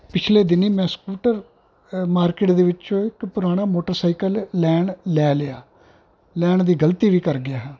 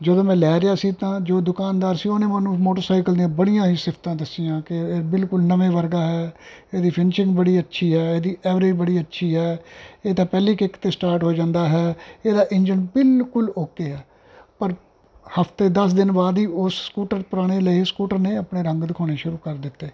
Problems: background sounds at intervals